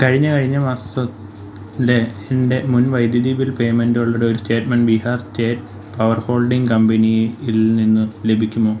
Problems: constant background noise